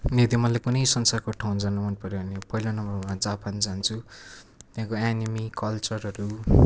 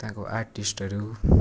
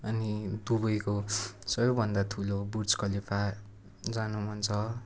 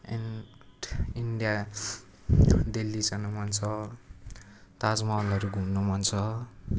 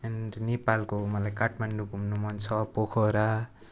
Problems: none marked